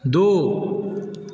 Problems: none marked